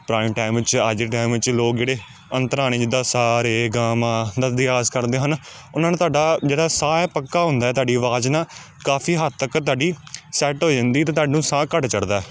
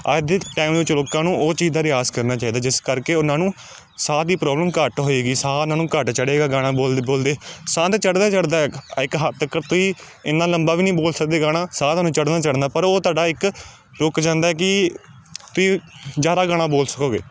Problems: constant background noise